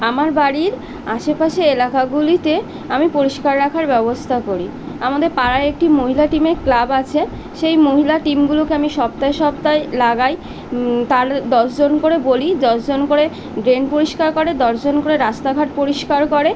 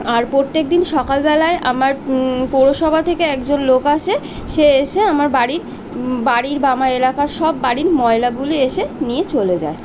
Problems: constant background noise